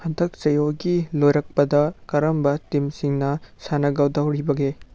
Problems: none marked